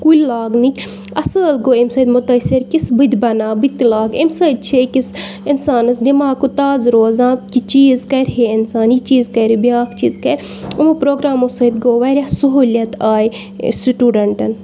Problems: background sounds at intervals